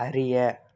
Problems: none marked